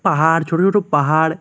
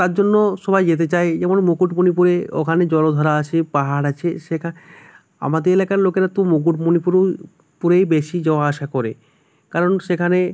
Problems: none marked